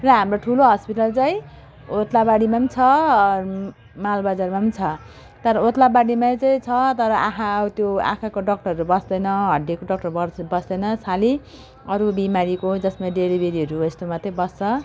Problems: none marked